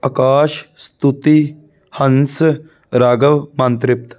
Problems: none marked